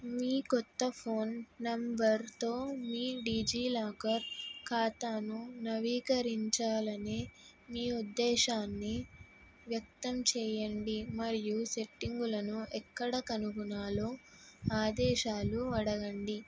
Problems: background sounds at intervals